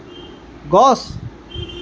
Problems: constant background noise